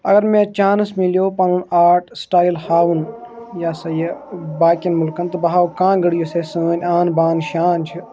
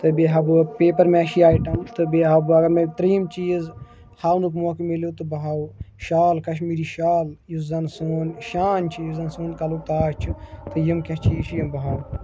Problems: continuous background conversations